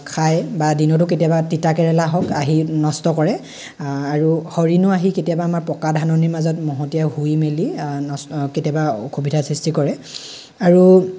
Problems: none marked